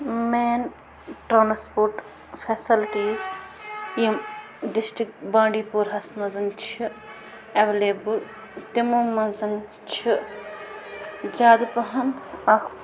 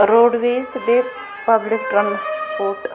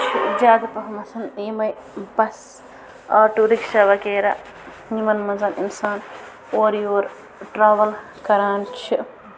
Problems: constant background noise